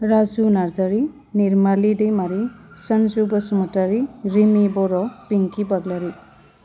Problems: none marked